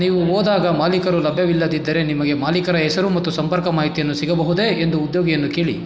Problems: background conversations at intervals